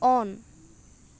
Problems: constant background noise